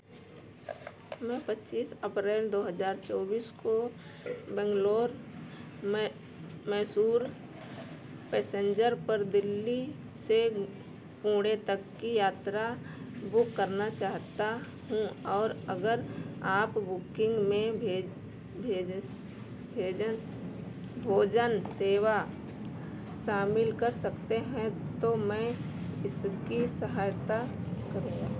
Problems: constant background noise